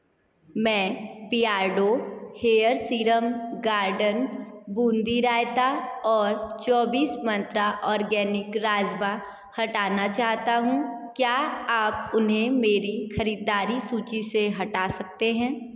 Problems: none marked